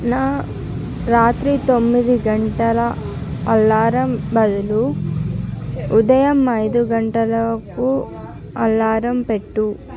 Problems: none marked